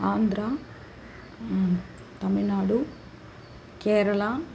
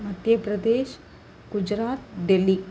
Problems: constant background noise